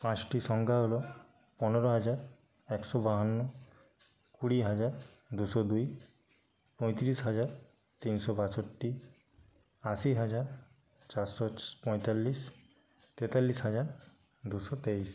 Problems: background sounds at intervals, background conversations at intervals